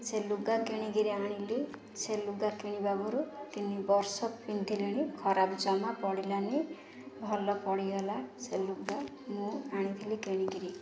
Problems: constant background noise